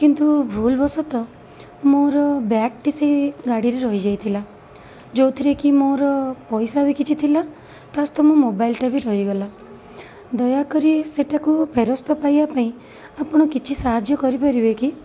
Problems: constant background noise